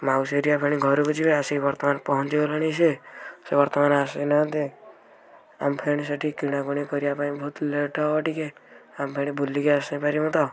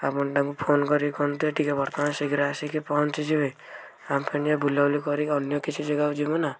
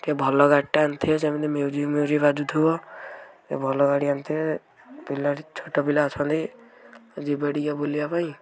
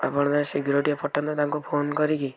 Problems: background conversations at intervals